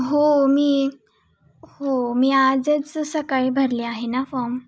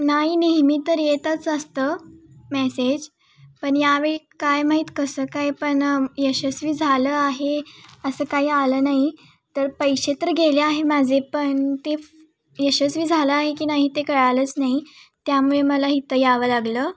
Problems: background sounds at intervals, background conversations at intervals